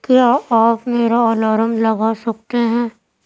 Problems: none marked